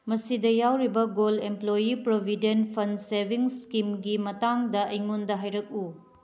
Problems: background sounds at intervals